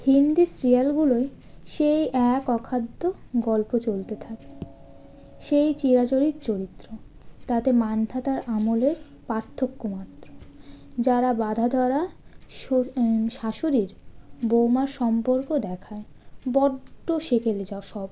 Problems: constant background noise